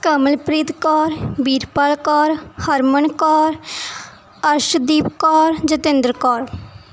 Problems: none marked